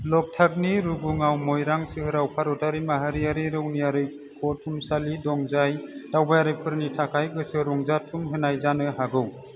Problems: none marked